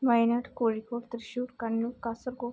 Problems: low volume